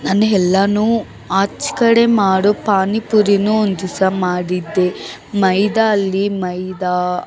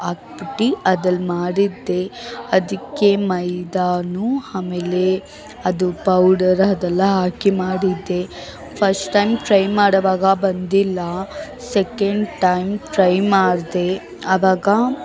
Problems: background sounds at intervals, background conversations at intervals